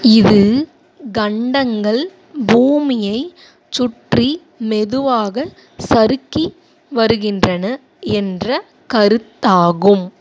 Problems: none marked